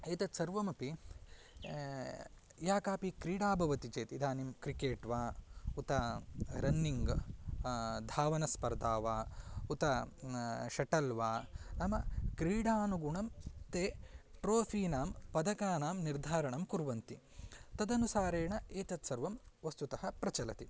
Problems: none marked